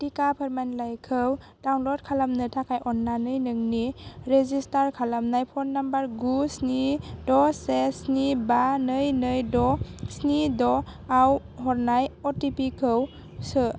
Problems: constant background noise